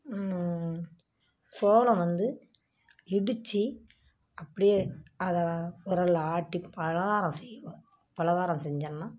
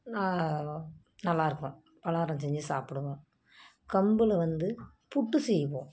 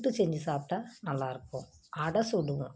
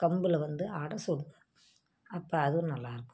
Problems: none marked